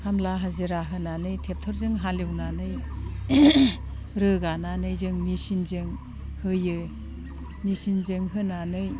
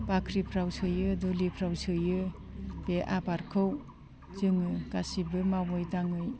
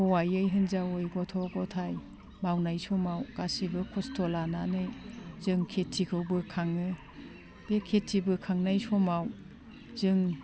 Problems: constant background noise